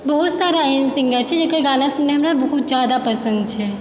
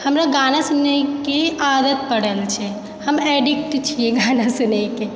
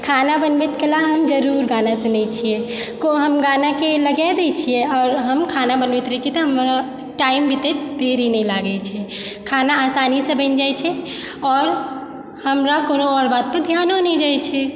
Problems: background sounds at intervals